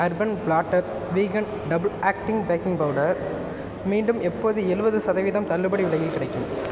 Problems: constant background noise